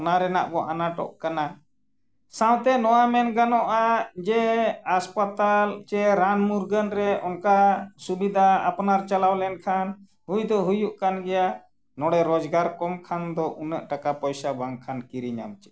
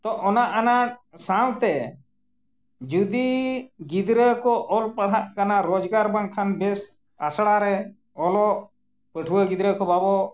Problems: none marked